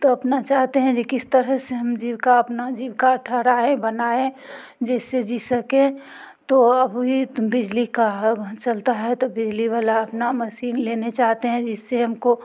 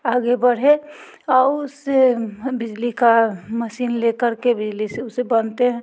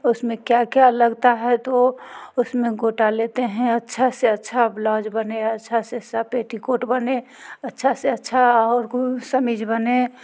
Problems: none marked